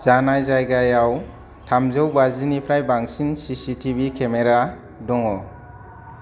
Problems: background sounds at intervals